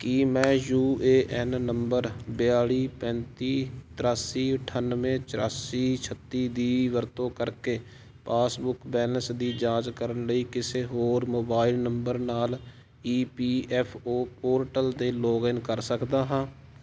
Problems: constant background noise